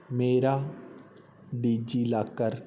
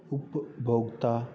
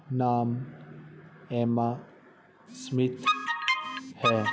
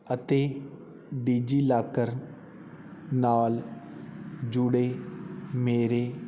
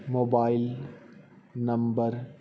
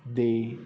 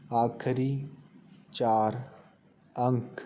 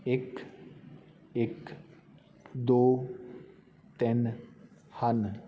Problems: constant background noise